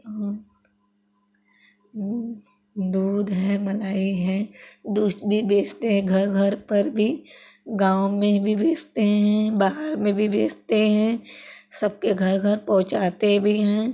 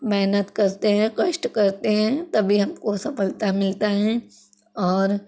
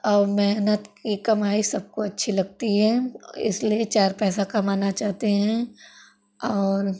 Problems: constant background noise, background conversations at intervals